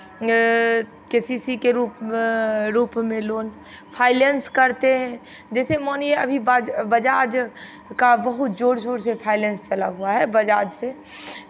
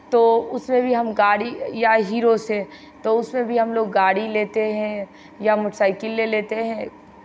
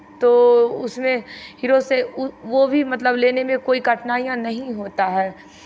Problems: constant background noise